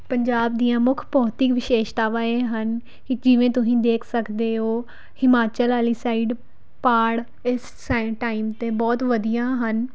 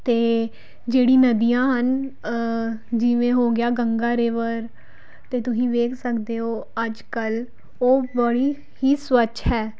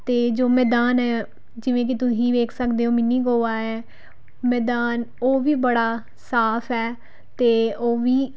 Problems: background sounds at intervals